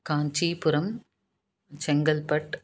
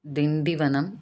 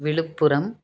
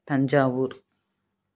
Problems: none marked